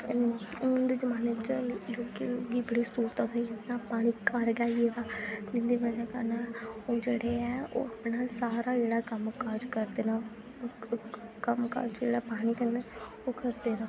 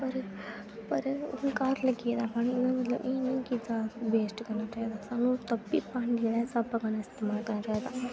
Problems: constant background noise